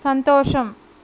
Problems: constant background noise